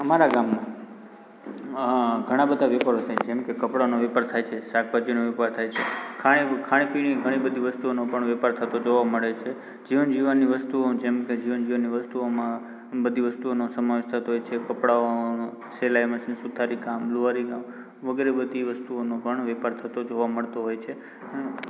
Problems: constant background noise